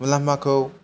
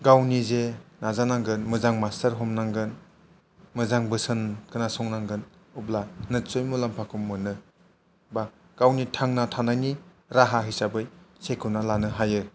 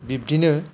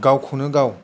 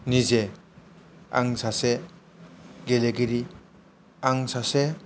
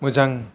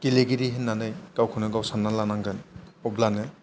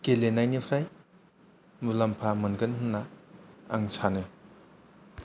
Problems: none marked